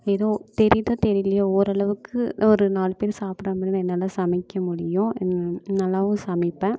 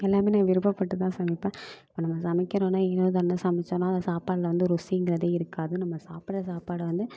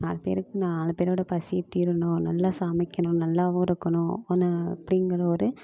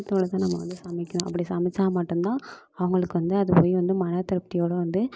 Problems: background sounds at intervals